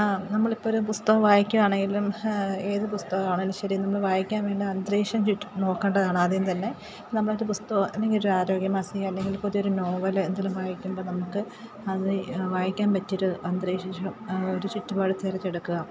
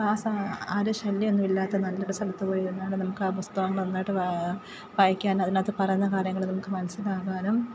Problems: background sounds at intervals, low volume